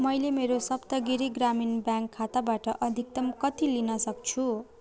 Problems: continuous background conversations